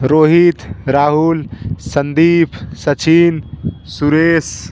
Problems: none marked